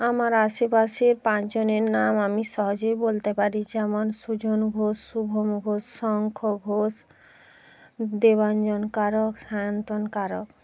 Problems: none marked